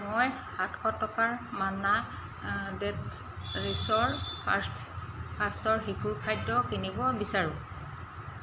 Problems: constant background noise